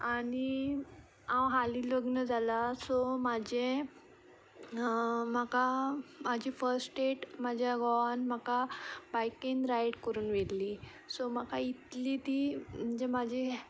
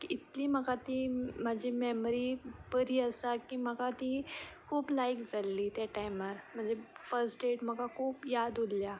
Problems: background sounds at intervals